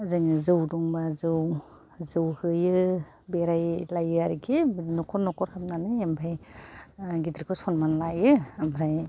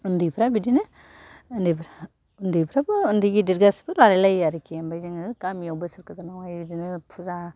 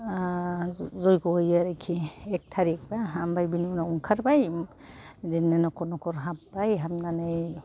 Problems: none marked